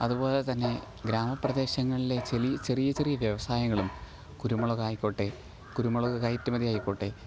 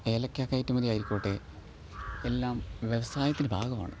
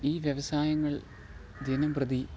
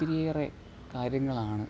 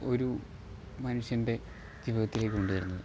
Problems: none marked